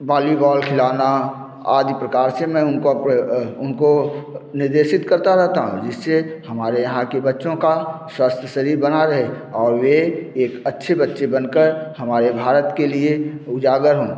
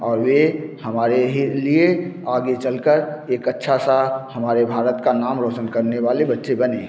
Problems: none marked